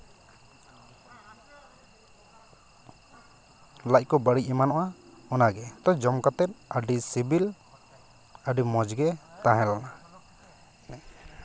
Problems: constant background noise, continuous background conversations